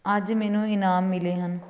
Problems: none marked